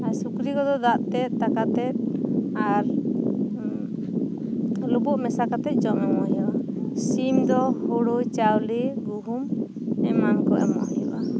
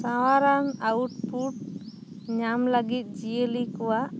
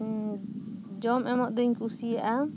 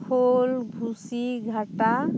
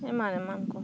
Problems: background sounds at intervals